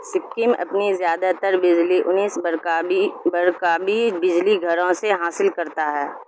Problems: constant background noise